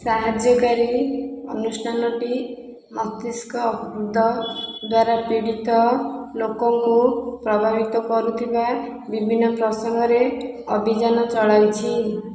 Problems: constant background noise